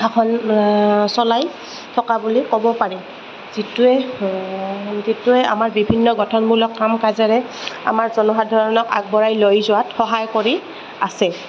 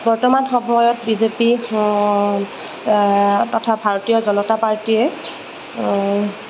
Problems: constant background noise, background conversations at intervals